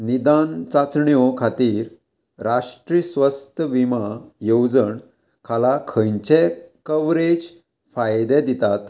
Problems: constant background noise